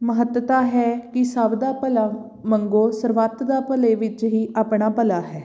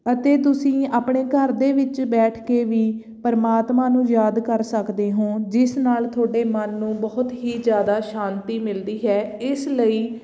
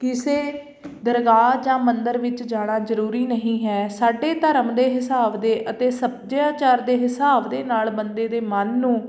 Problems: background sounds at intervals